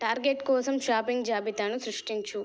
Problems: background sounds at intervals